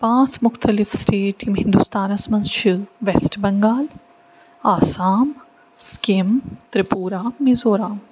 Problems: none marked